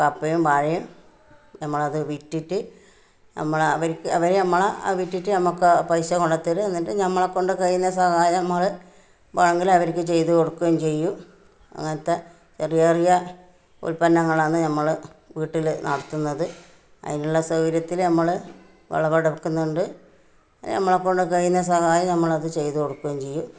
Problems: none marked